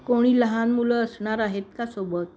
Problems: none marked